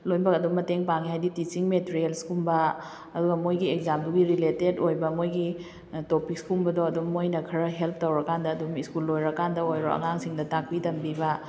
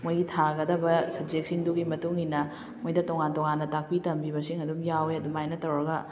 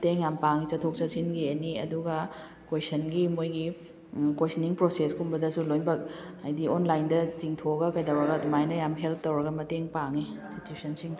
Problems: background sounds at intervals